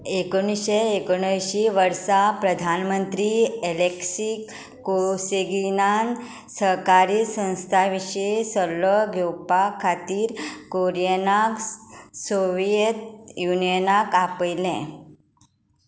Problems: none marked